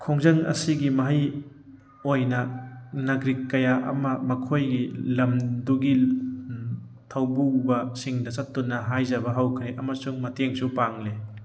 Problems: constant background noise